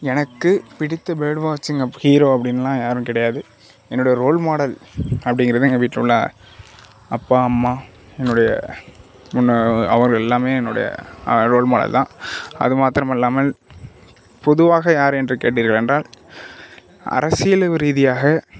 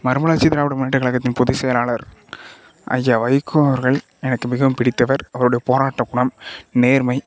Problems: background sounds at intervals